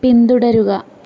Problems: background sounds at intervals